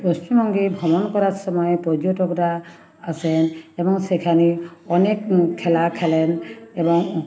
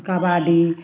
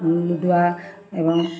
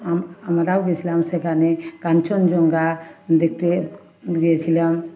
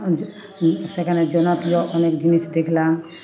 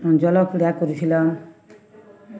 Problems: none marked